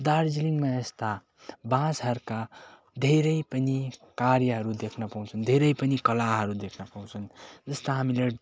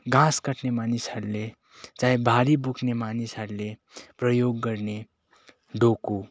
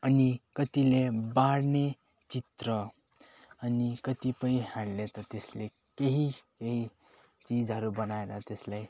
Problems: constant background noise